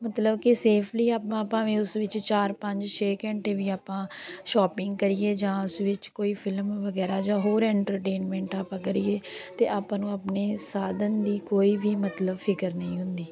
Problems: background sounds at intervals, background conversations at intervals